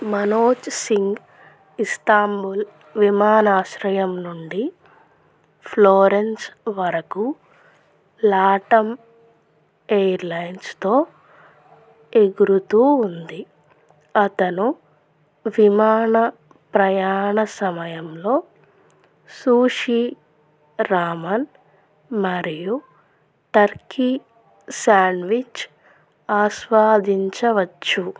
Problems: none marked